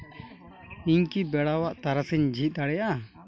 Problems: continuous background conversations